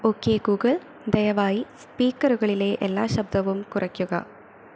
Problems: constant background noise